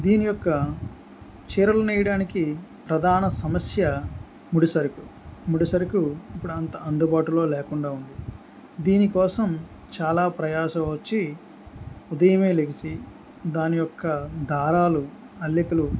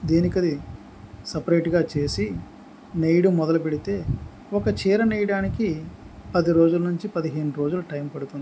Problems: background sounds at intervals